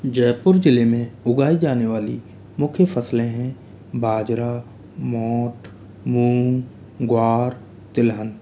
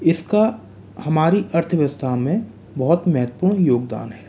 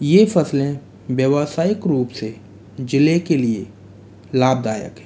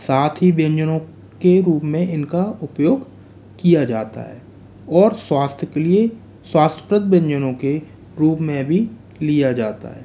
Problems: background sounds at intervals